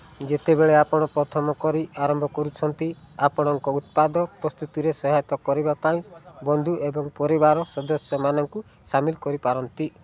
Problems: constant background noise